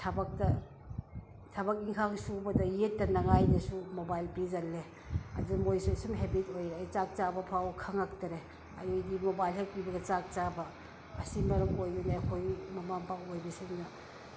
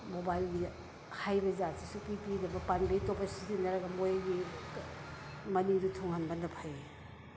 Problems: background sounds at intervals